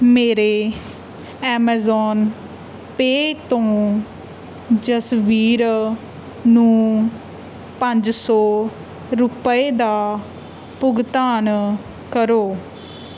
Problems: none marked